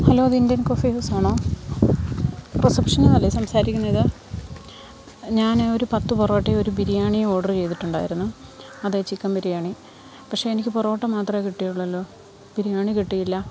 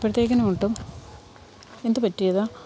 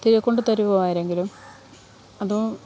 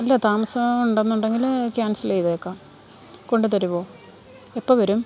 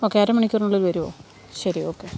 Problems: background sounds at intervals